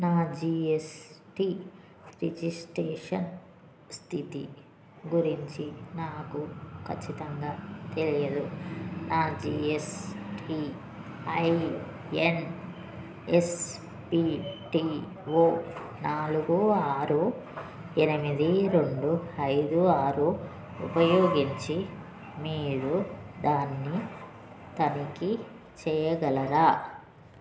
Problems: constant background noise